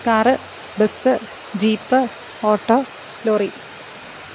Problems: constant background noise